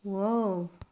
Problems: low volume